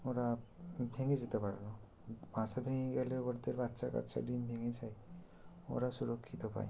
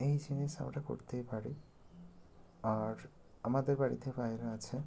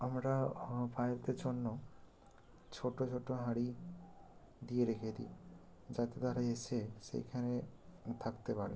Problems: constant background noise